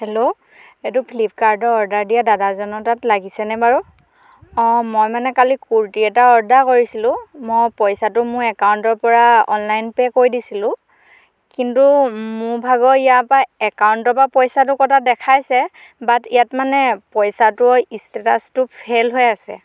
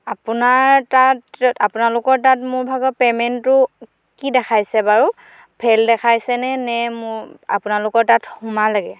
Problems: none marked